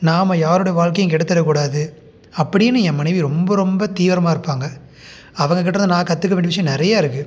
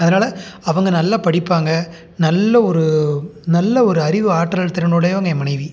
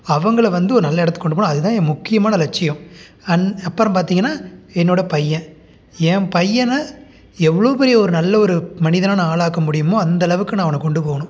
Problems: none marked